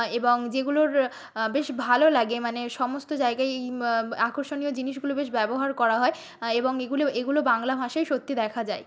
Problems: none marked